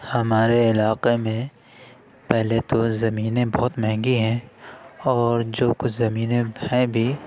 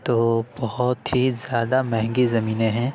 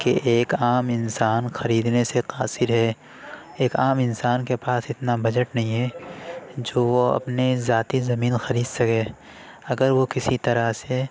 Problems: constant background noise